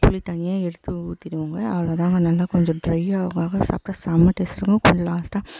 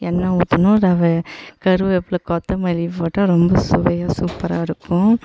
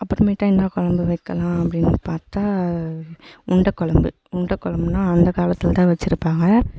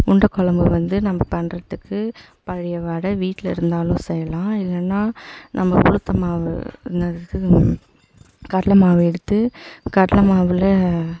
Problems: echo